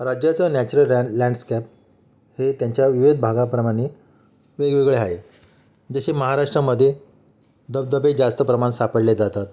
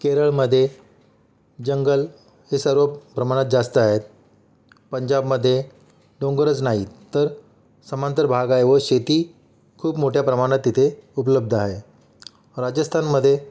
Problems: none marked